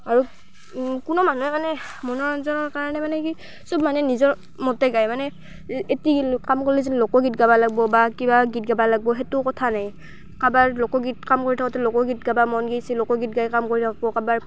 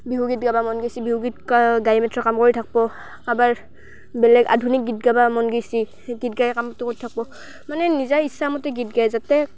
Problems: constant background noise